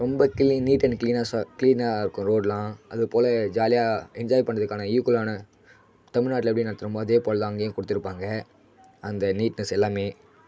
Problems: none marked